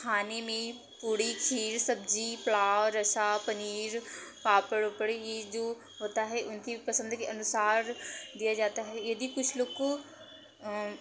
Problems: none marked